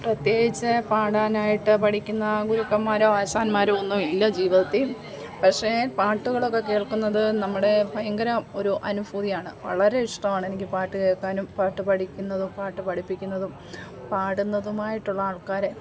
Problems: none marked